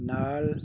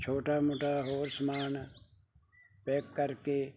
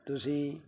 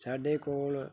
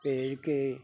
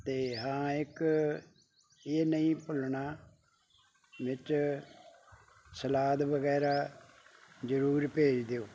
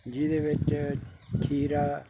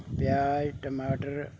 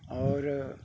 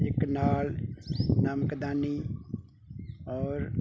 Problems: constant background noise